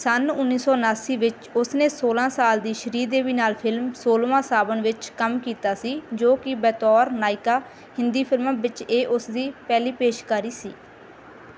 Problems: background sounds at intervals